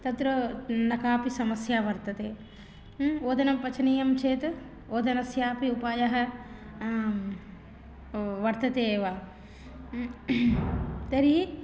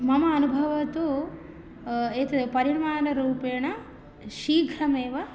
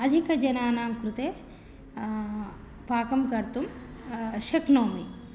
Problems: none marked